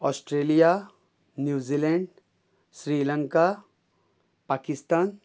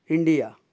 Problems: none marked